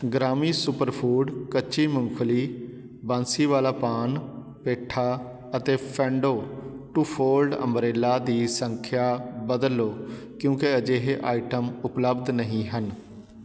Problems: constant background noise